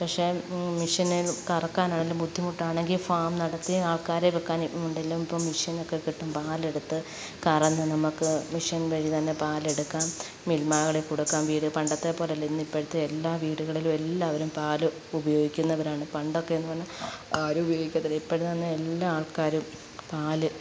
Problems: background sounds at intervals